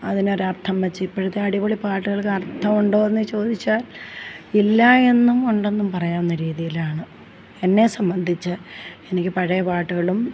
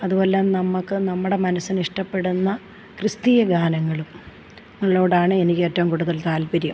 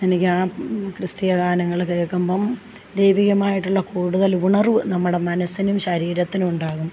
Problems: none marked